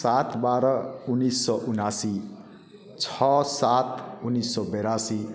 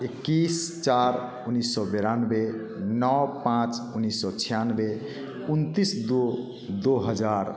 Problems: none marked